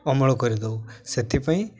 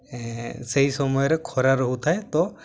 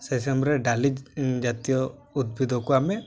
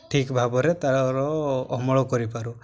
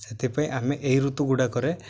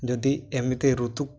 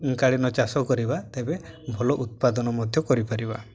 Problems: none marked